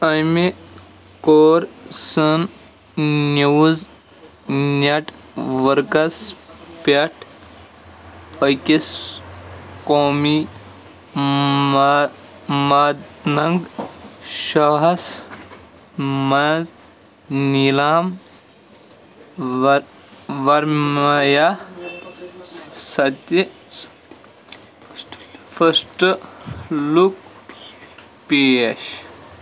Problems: constant background noise